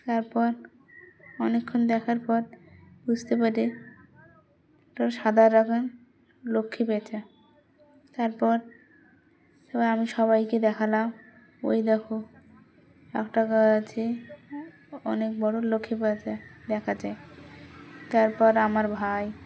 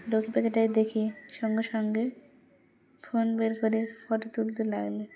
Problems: constant background noise, background conversations at intervals